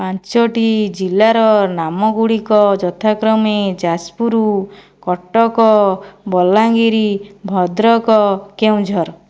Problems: none marked